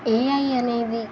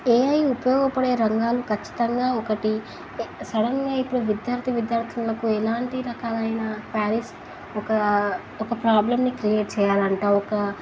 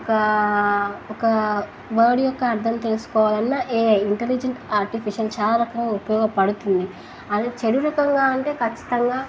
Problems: constant background noise